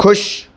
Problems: constant background noise